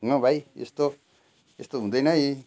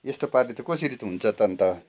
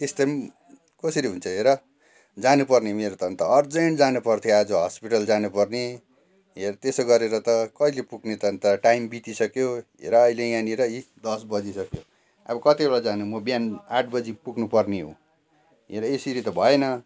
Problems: none marked